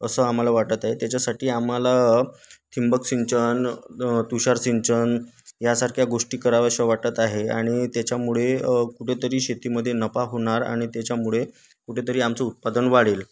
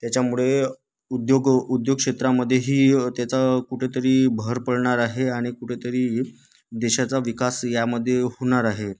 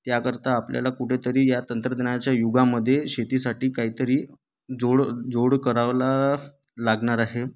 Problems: constant background noise